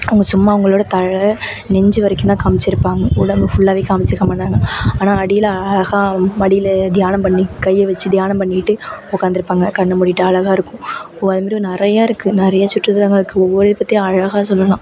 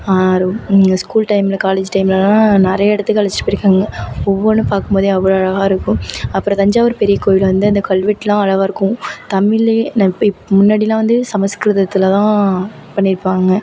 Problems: background sounds at intervals